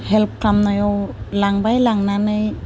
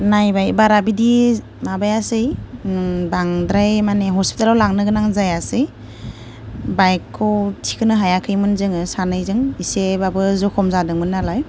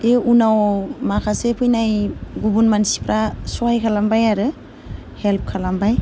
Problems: none marked